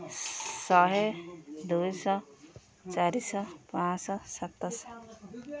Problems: constant background noise, continuous background conversations